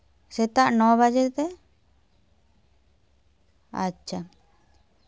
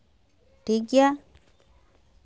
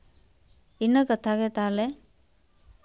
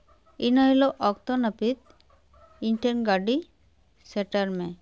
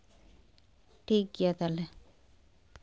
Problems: none marked